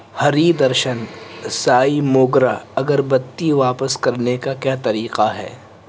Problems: constant background noise